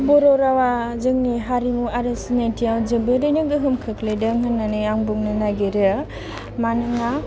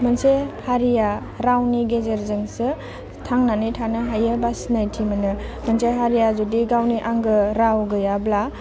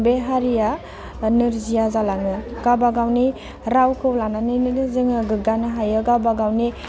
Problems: constant background noise